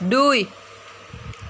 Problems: constant background noise